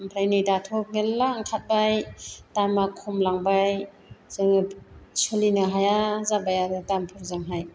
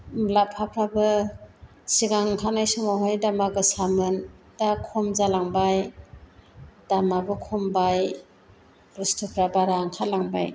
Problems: constant background noise